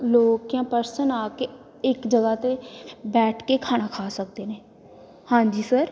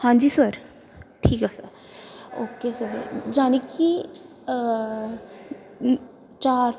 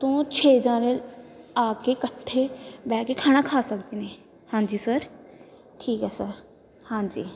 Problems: background conversations at intervals